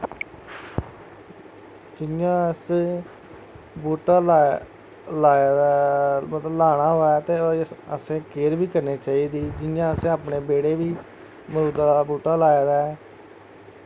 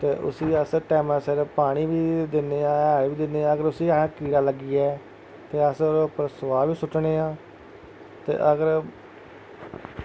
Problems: constant background noise